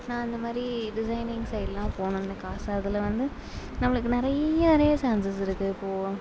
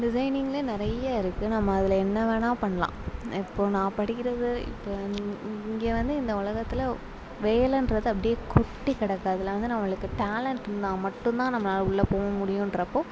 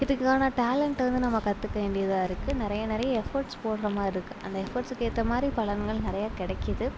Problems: constant background noise